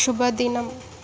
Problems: none marked